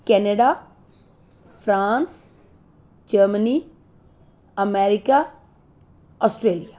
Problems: constant background noise